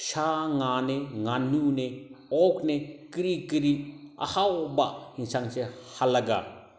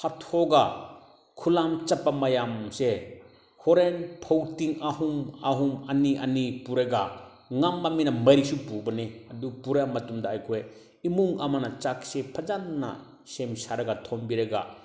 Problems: background sounds at intervals